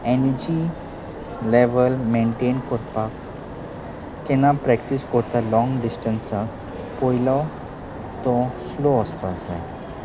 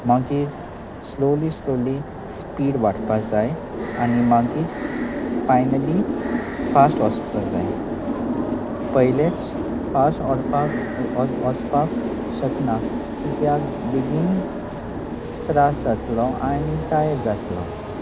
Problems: constant background noise, continuous background conversations